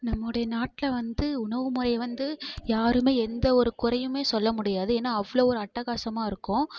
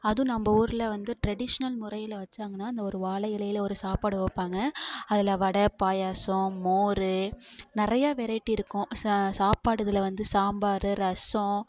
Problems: constant background noise